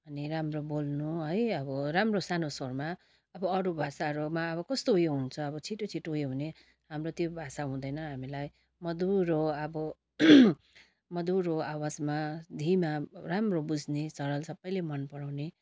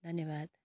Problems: constant background noise